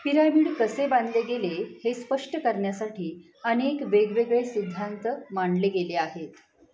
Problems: none marked